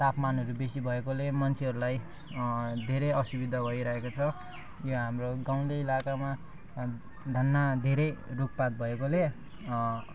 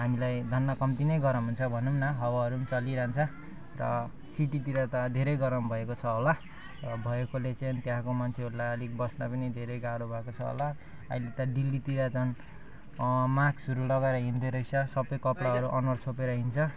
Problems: background sounds at intervals